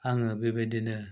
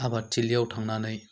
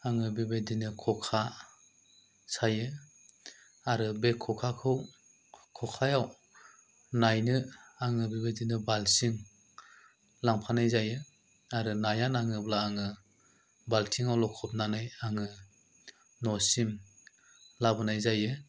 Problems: low volume